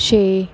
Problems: background conversations at intervals